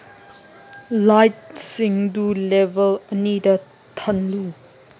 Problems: none marked